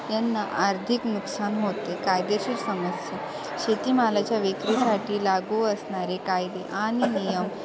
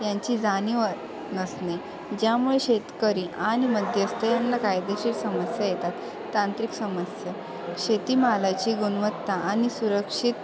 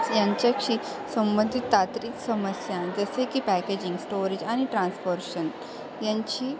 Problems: constant background noise, continuous background conversations